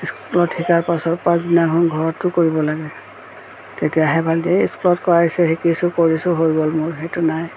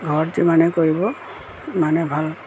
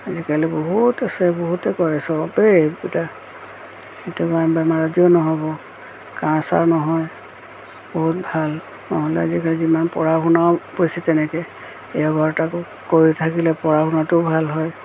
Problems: constant background noise